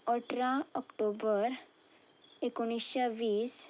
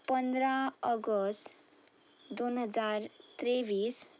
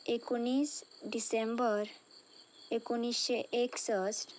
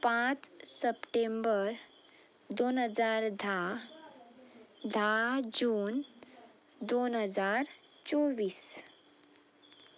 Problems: none marked